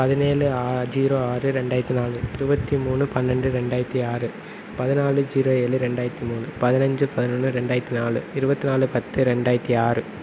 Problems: constant background noise